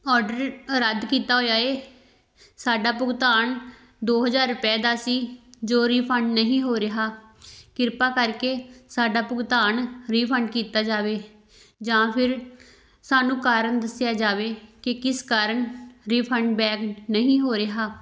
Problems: none marked